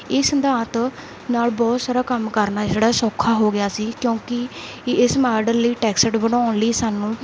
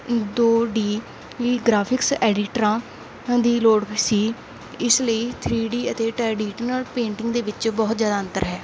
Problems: constant background noise